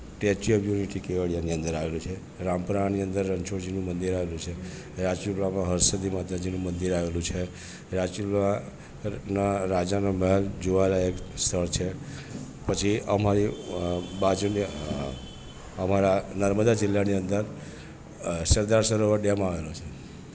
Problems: constant background noise